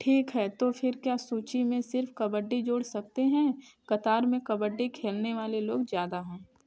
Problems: background sounds at intervals, background conversations at intervals